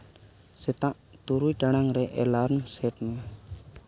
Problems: none marked